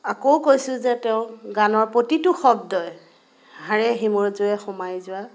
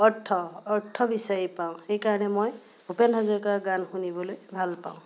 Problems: constant background noise